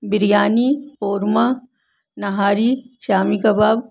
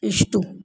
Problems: constant background noise